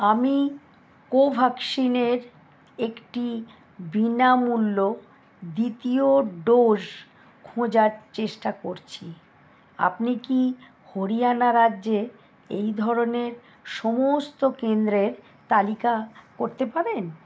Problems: none marked